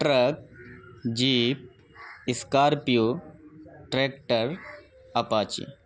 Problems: none marked